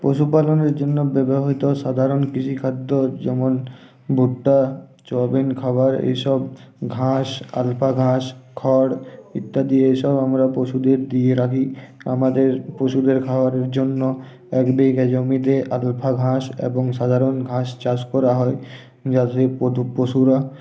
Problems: constant background noise